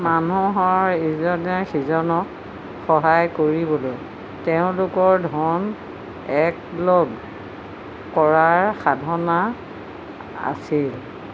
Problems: constant background noise